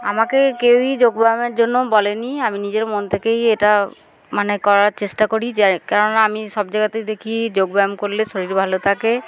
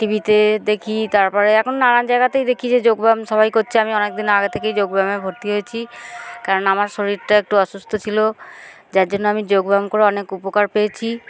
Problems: none marked